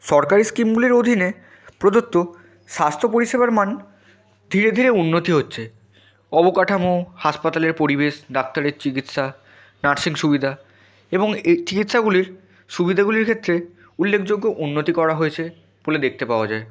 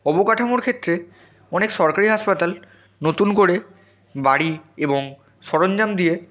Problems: none marked